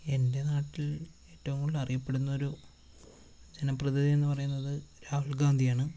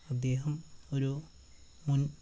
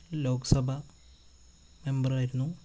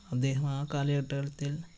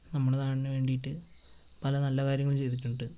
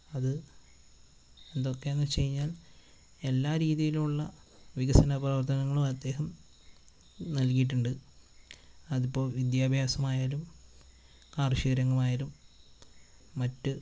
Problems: constant background noise